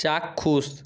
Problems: background sounds at intervals